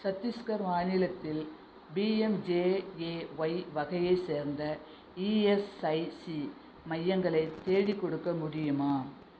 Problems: none marked